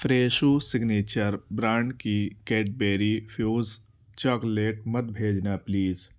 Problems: constant background noise